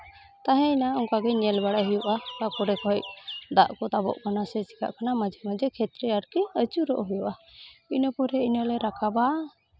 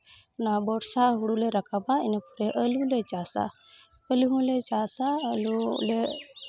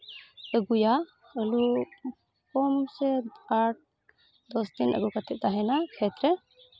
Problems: constant background noise, continuous background conversations